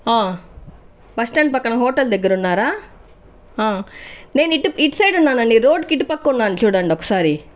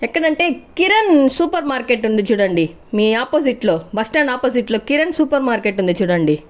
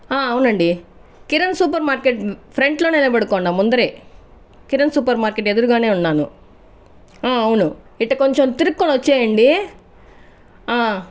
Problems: none marked